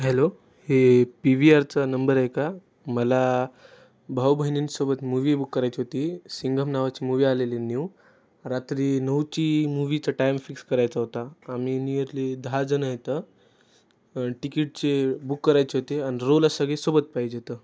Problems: none marked